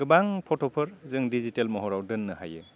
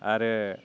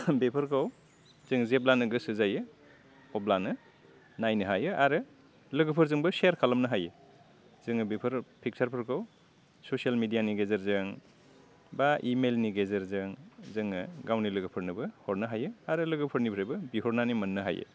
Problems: low volume